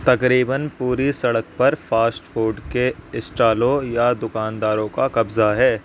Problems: constant background noise